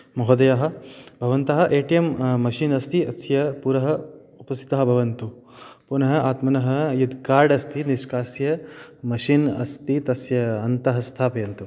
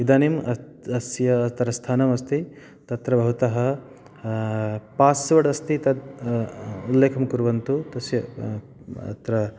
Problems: background sounds at intervals